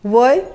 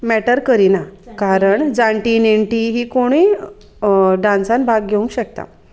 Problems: constant background noise, background conversations at intervals